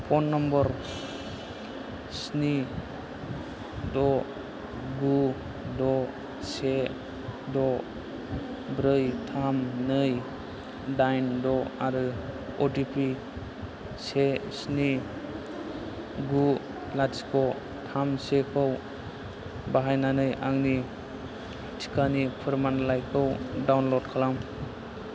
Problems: low volume